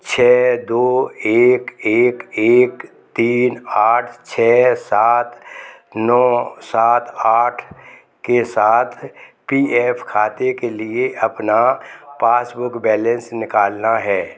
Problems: background conversations at intervals